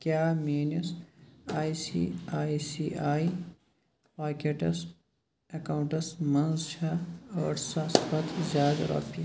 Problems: background sounds at intervals